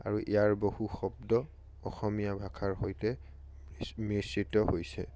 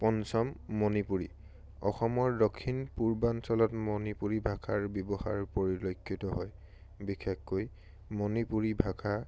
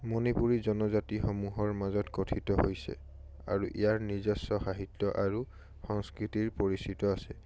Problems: none marked